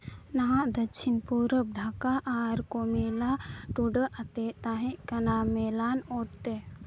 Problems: background sounds at intervals